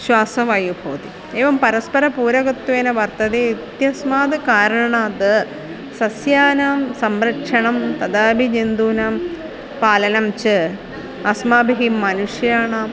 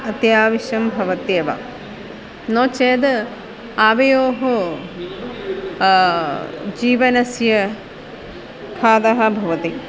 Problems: constant background noise, continuous background conversations